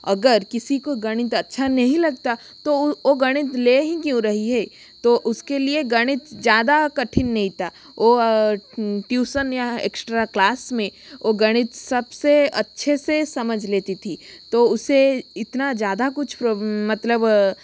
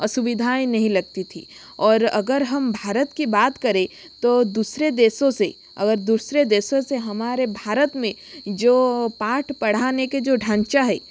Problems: constant background noise